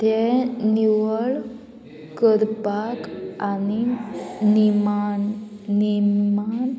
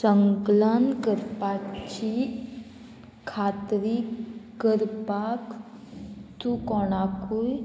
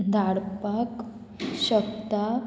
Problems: constant background noise